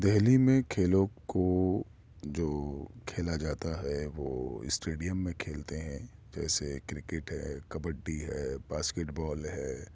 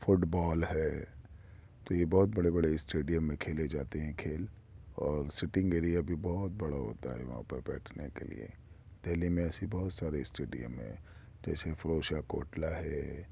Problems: none marked